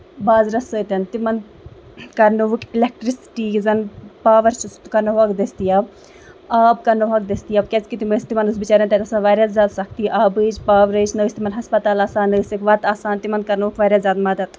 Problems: background sounds at intervals